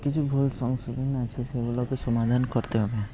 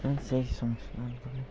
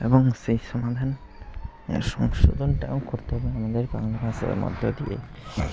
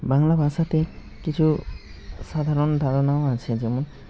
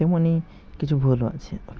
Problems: constant background noise, background conversations at intervals